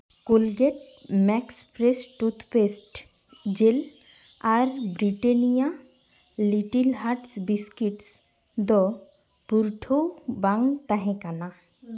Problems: constant background noise